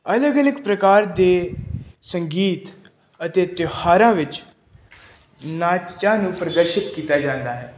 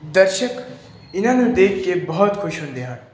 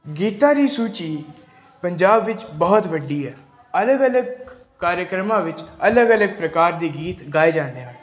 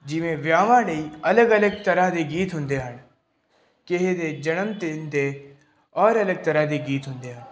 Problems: background sounds at intervals